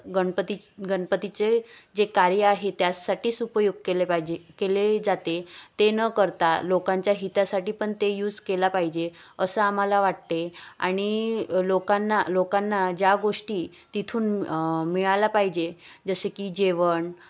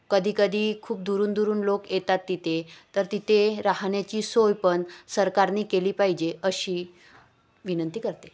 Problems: constant background noise, background conversations at intervals